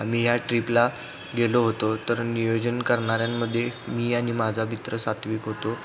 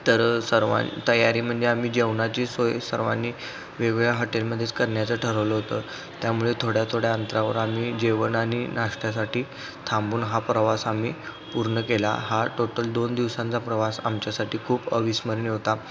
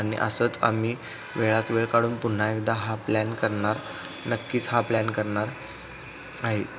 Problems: constant background noise, background conversations at intervals